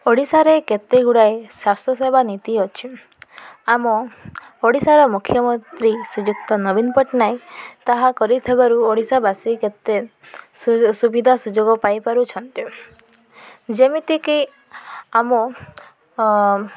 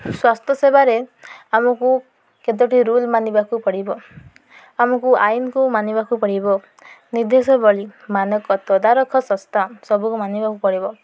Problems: none marked